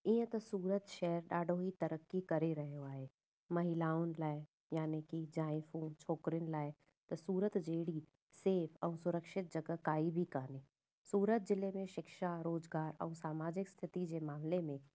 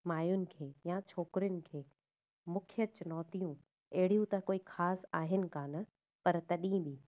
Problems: none marked